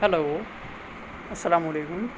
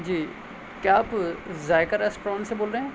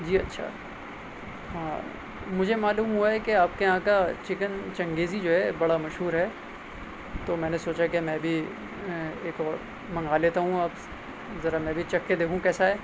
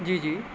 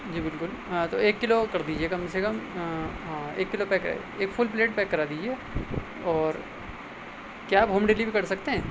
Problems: constant background noise